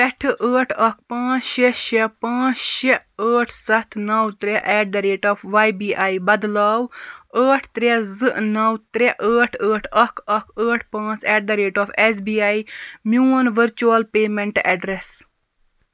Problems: none marked